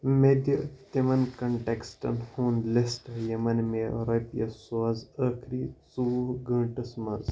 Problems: background sounds at intervals